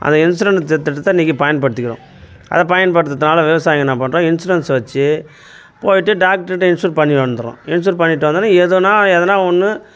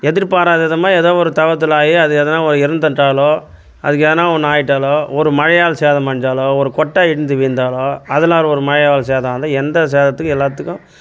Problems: constant background noise